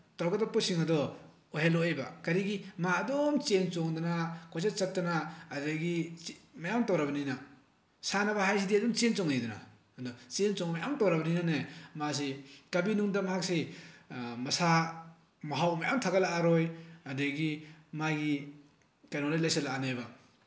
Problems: constant background noise